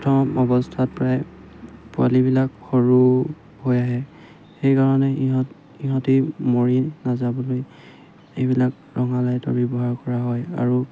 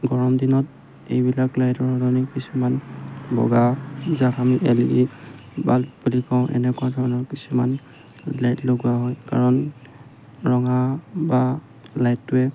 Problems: none marked